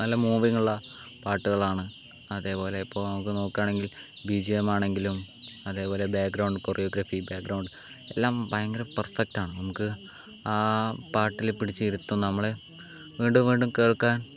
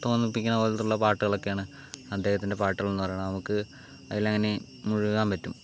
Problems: constant background noise